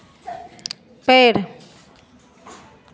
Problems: continuous background conversations